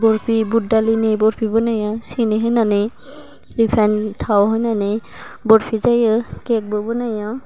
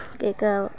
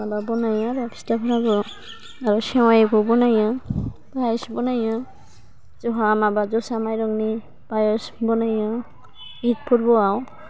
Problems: low volume